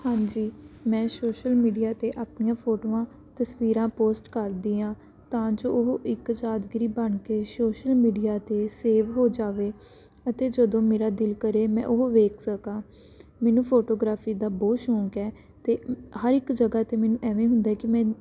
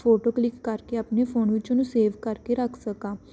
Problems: constant background noise